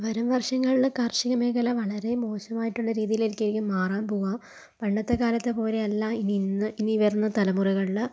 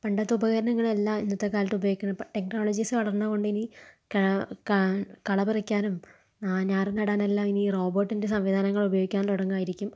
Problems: low volume